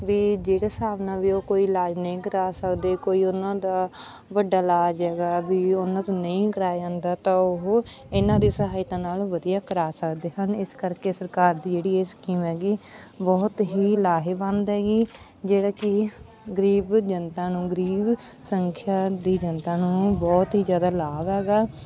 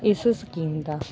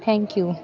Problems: none marked